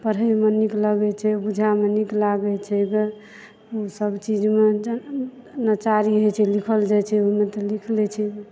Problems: background sounds at intervals